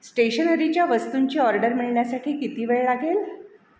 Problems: background sounds at intervals, echo